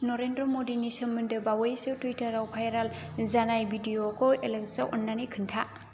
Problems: none marked